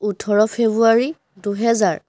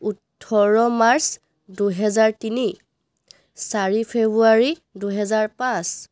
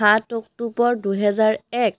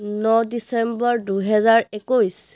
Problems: none marked